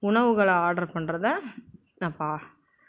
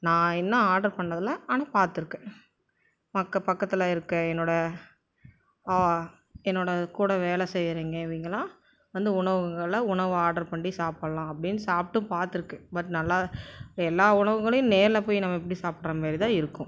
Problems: background sounds at intervals